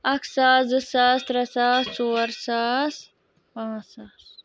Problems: background sounds at intervals